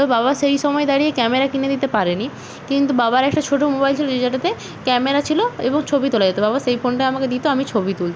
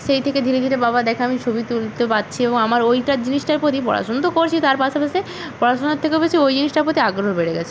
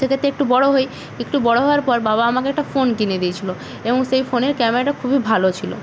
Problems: none marked